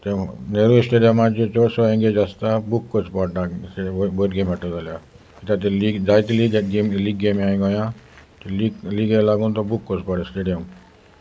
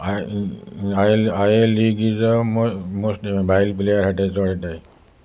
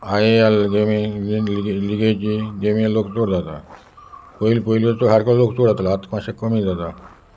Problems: constant background noise